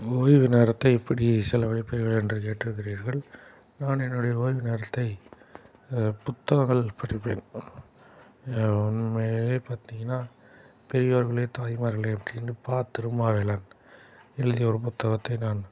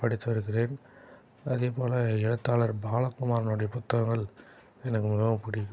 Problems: background sounds at intervals